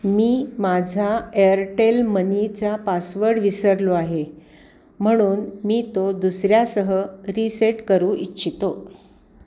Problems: background sounds at intervals